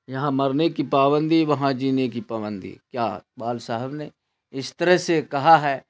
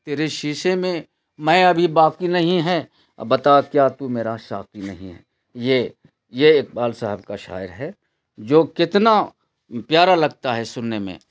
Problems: constant background noise